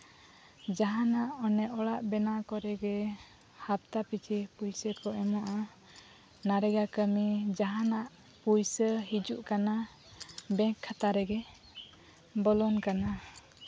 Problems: none marked